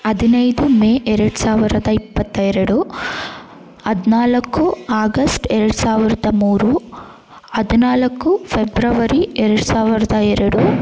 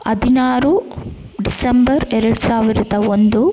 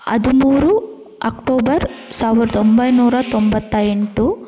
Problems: background sounds at intervals